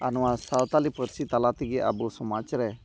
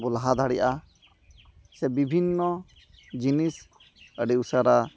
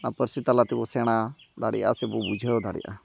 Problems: none marked